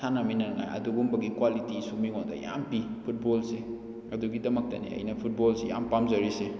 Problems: none marked